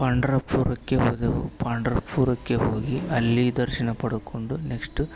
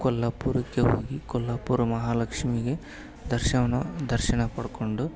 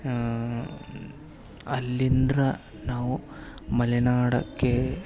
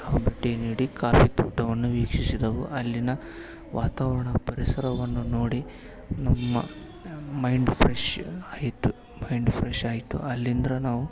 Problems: background sounds at intervals